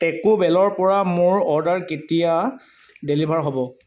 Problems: background sounds at intervals